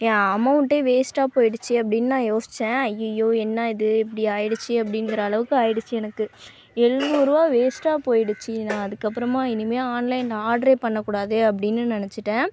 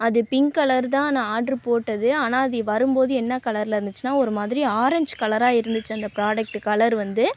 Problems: none marked